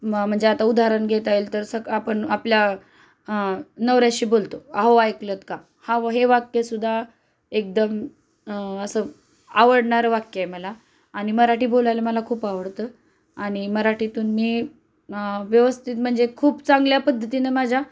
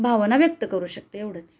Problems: constant background noise